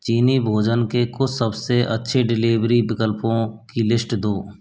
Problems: constant background noise